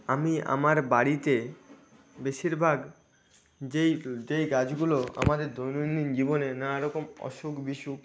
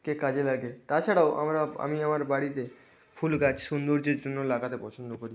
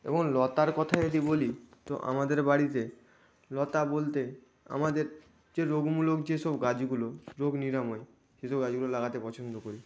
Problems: none marked